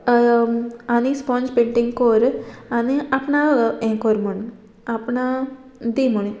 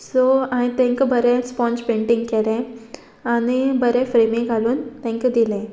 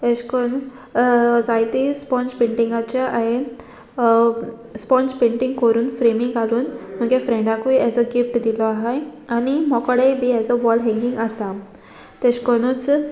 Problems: constant background noise